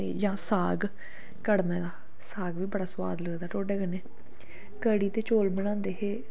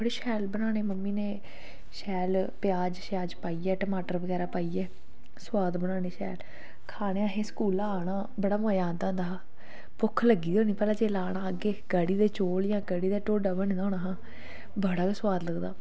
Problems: none marked